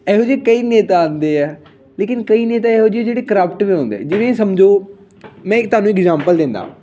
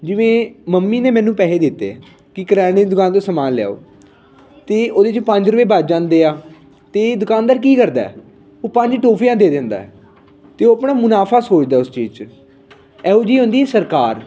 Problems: background conversations at intervals